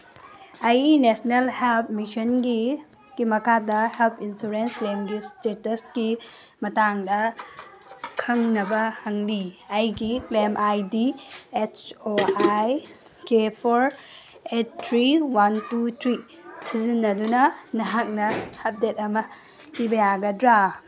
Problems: constant background noise